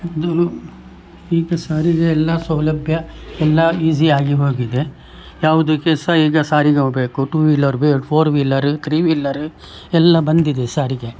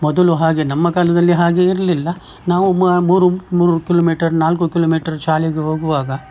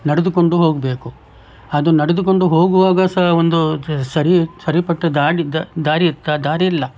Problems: background sounds at intervals